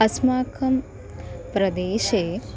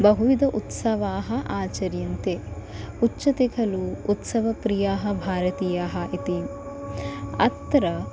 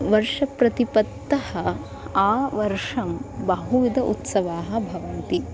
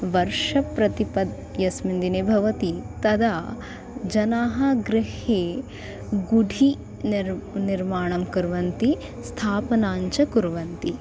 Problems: constant background noise, continuous background conversations